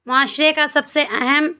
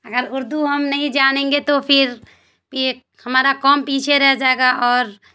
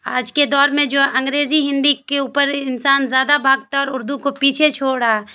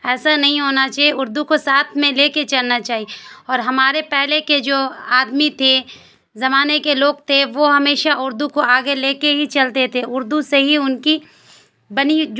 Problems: constant background noise